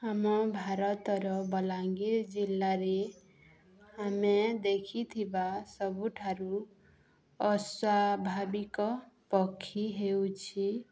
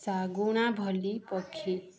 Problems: none marked